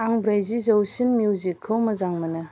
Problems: constant background noise